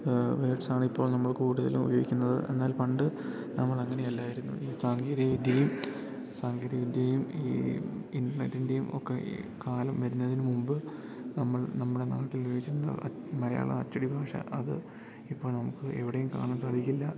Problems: none marked